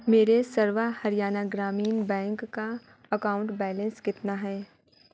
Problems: none marked